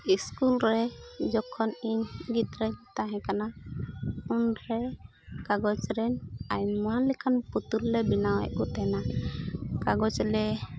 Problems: constant background noise